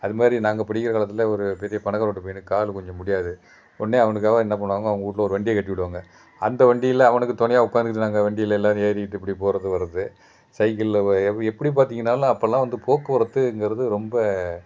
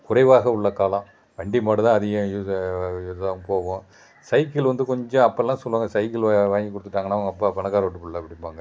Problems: background sounds at intervals